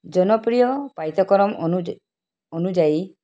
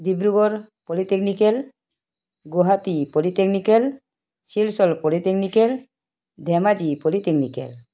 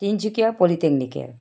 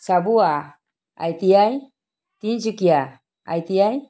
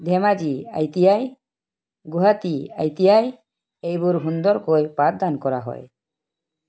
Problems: background sounds at intervals